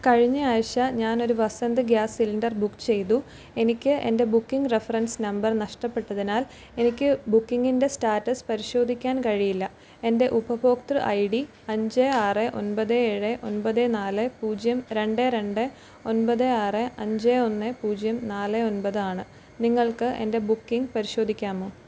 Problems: background sounds at intervals